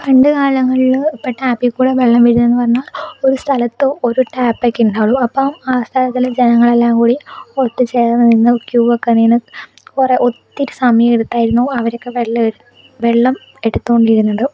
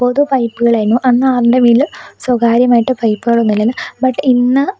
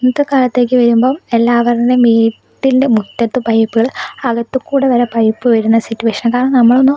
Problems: none marked